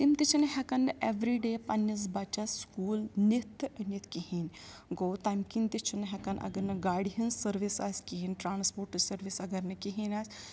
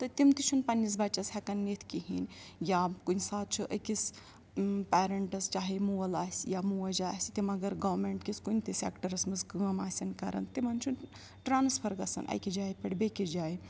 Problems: background sounds at intervals